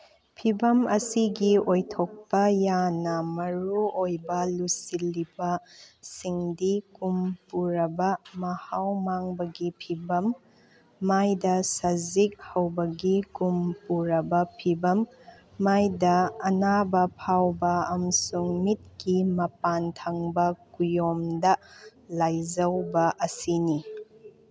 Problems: background sounds at intervals